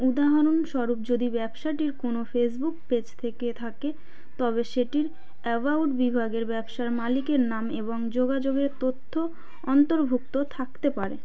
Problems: none marked